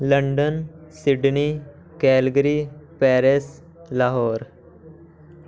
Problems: background conversations at intervals